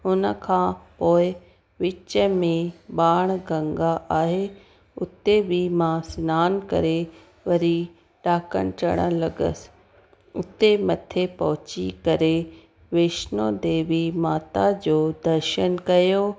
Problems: constant background noise